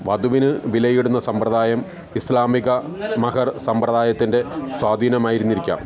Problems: continuous background conversations